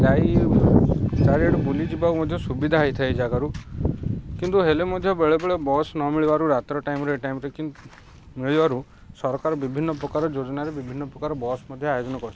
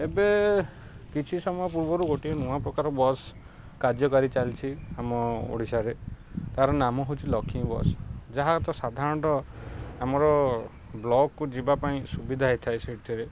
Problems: background sounds at intervals